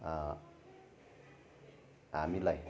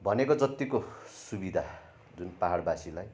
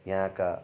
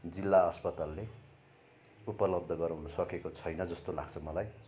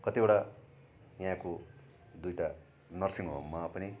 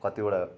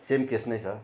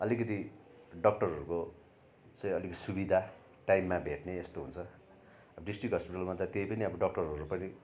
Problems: constant background noise